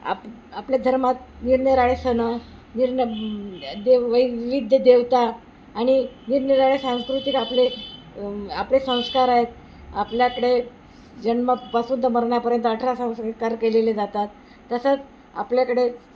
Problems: constant background noise